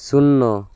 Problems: none marked